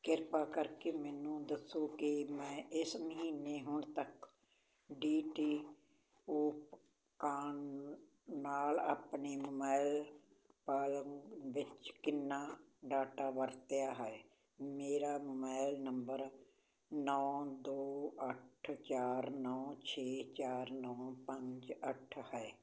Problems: constant background noise